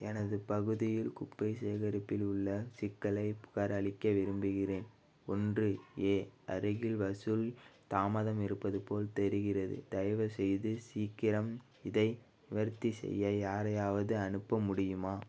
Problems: low volume